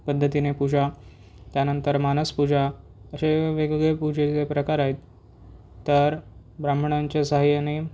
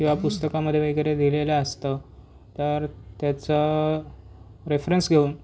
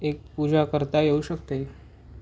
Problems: none marked